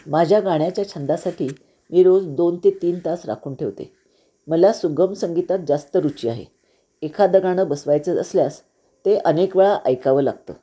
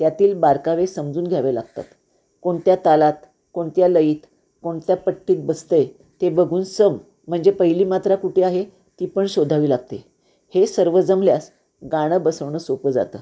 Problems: none marked